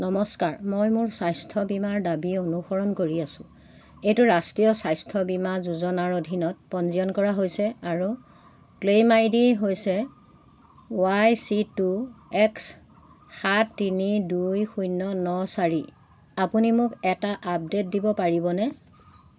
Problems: constant background noise